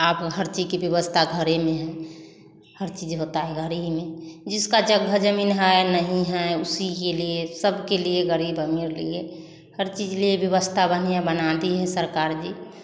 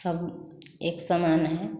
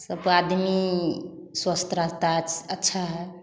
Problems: background conversations at intervals, echo